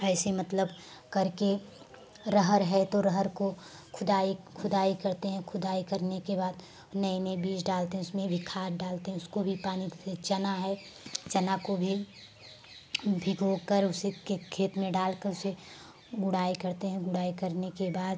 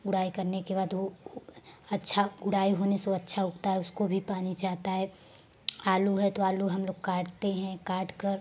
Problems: none marked